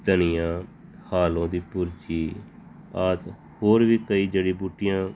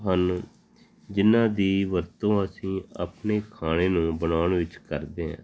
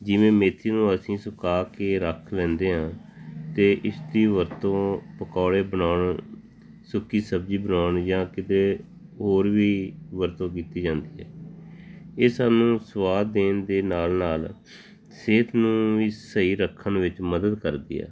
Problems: constant background noise